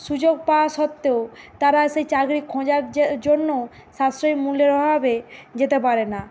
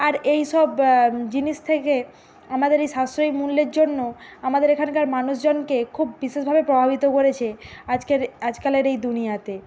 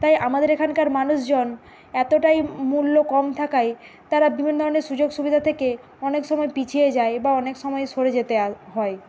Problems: none marked